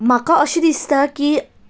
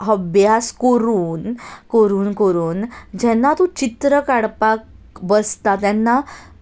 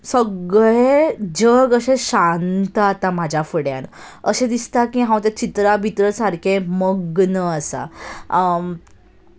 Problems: none marked